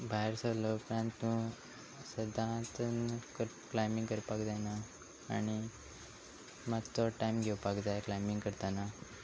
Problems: constant background noise